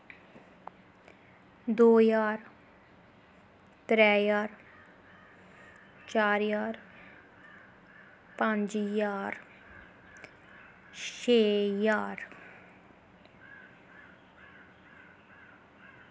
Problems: constant background noise